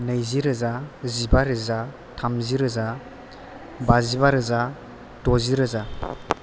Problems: background sounds at intervals